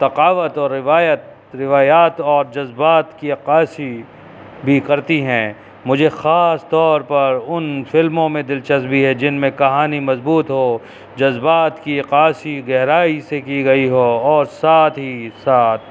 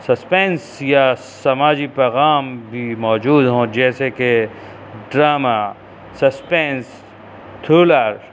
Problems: constant background noise